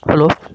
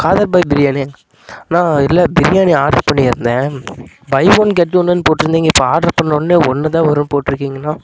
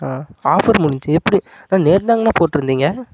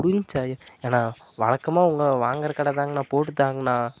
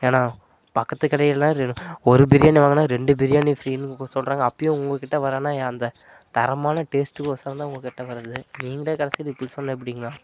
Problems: constant background noise